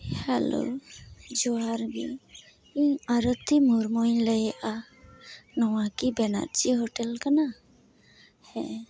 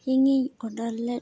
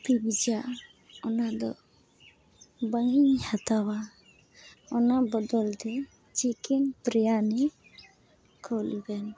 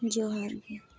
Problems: constant background noise